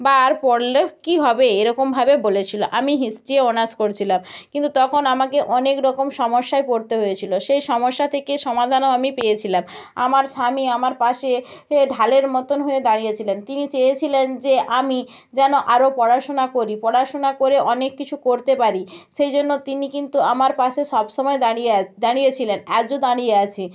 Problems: none marked